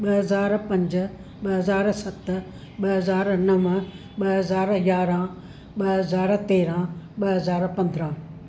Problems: none marked